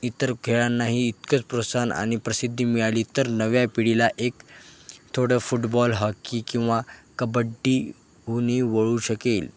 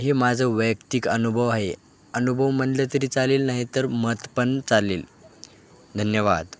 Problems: constant background noise, background conversations at intervals